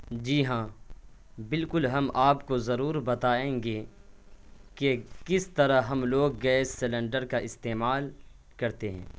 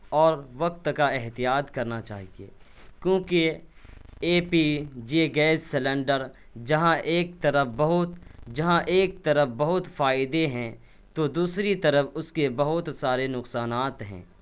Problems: none marked